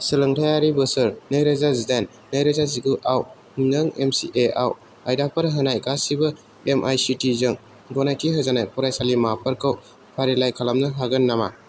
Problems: none marked